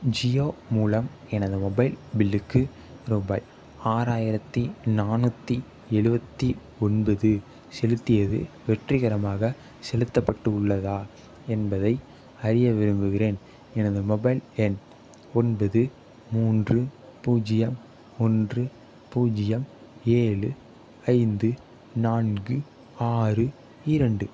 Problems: none marked